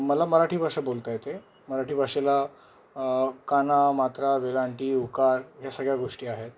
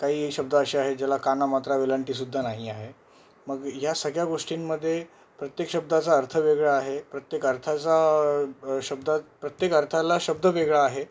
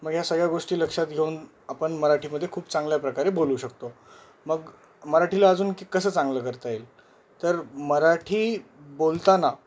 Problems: none marked